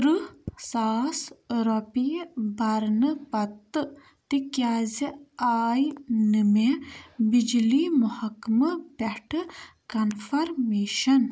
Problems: background sounds at intervals